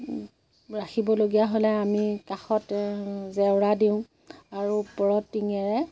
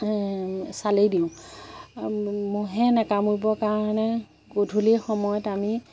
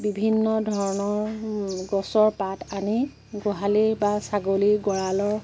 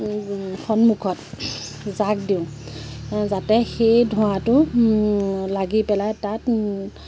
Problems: constant background noise, background conversations at intervals